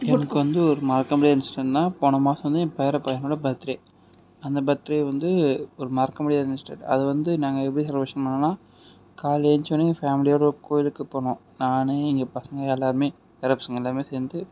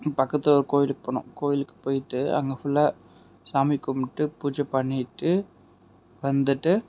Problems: none marked